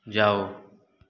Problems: none marked